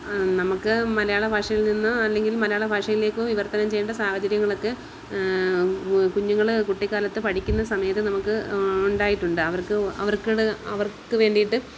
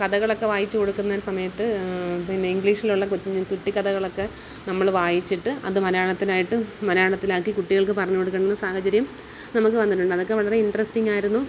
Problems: constant background noise